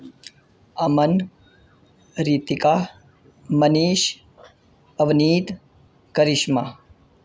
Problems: constant background noise